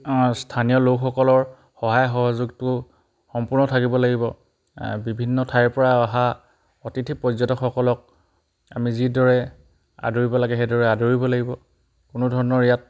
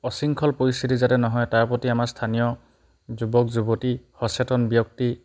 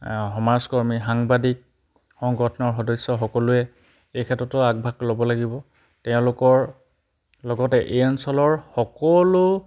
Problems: background sounds at intervals